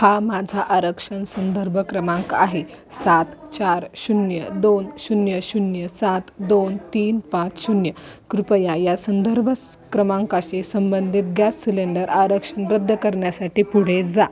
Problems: constant background noise, continuous background conversations